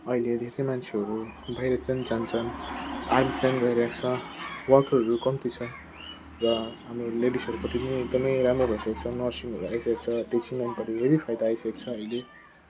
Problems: constant background noise, low volume